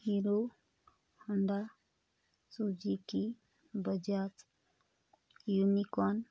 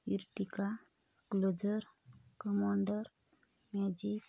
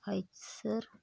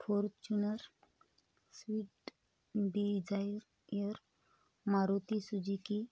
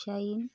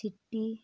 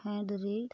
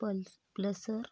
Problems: constant background noise